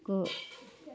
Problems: background sounds at intervals